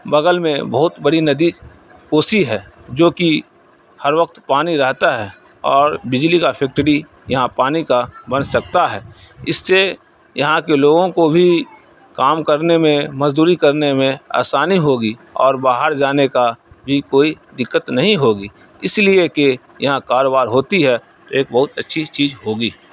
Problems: none marked